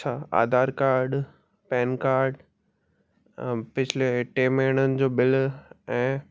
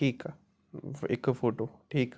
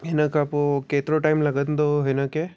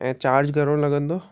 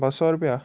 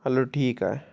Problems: none marked